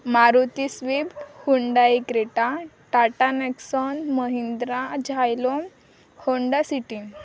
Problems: none marked